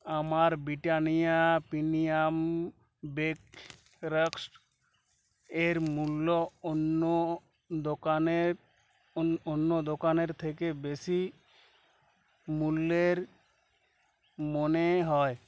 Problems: background sounds at intervals, background conversations at intervals